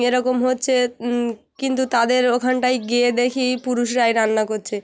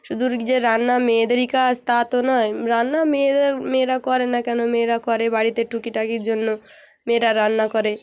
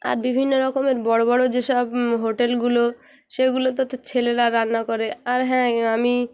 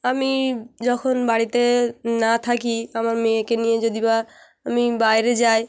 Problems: constant background noise, background conversations at intervals